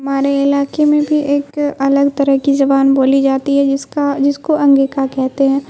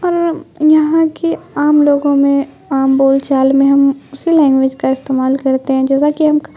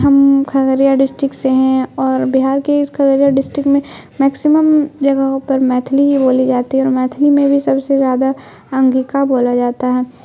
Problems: constant background noise